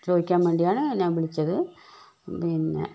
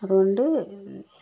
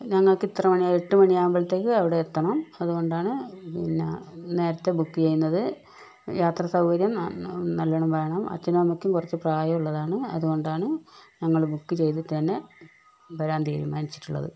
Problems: none marked